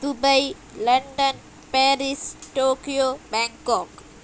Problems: constant background noise